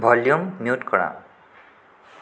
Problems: constant background noise